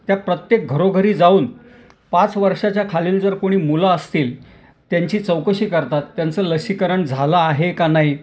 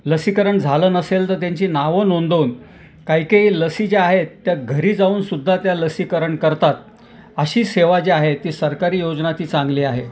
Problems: none marked